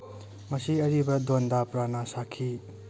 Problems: none marked